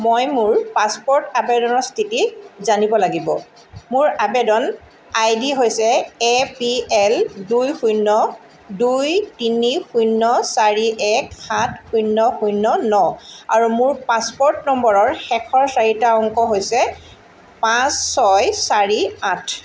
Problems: constant background noise